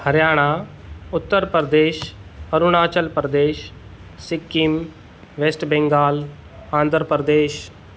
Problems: none marked